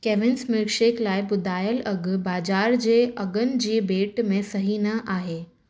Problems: none marked